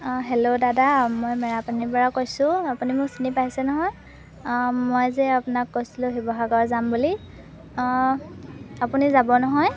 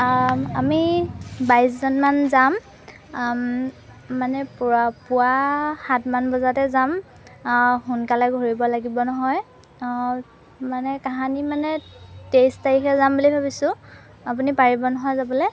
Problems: background sounds at intervals